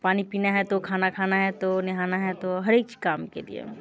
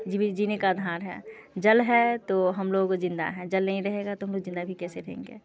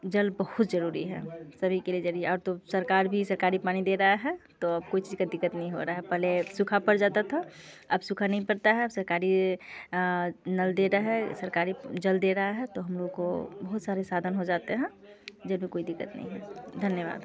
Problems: background conversations at intervals